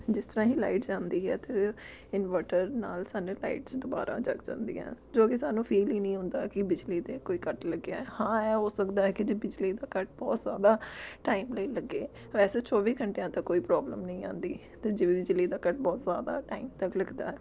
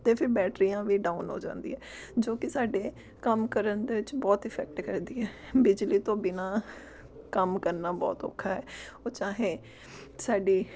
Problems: none marked